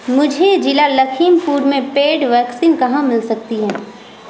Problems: constant background noise